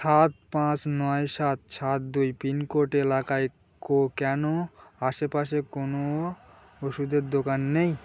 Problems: none marked